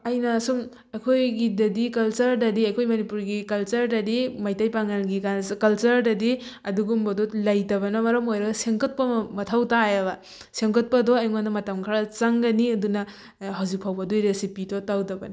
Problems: none marked